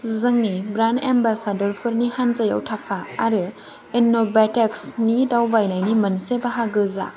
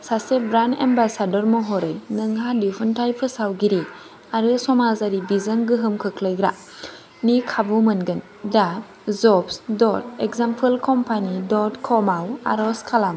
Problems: none marked